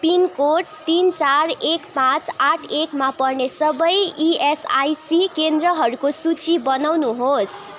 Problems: background conversations at intervals